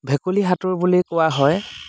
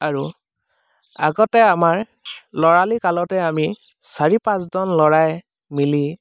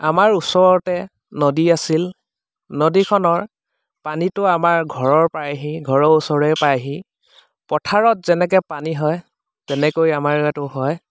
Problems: none marked